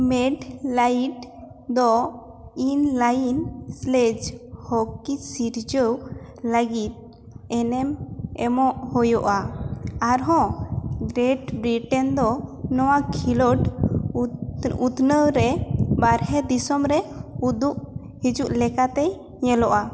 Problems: constant background noise